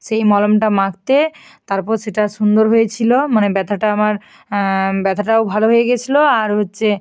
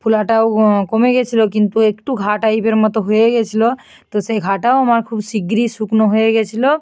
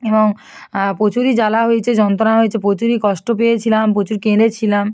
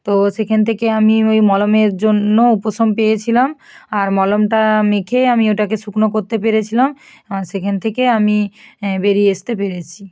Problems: none marked